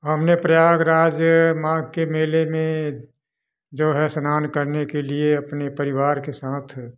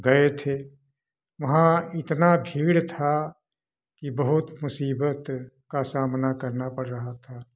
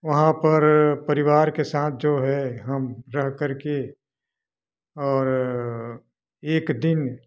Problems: constant background noise